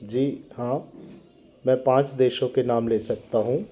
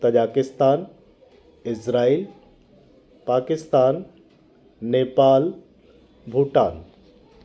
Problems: constant background noise